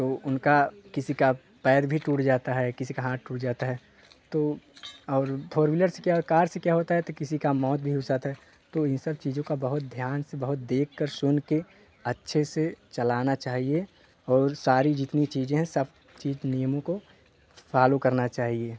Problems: constant background noise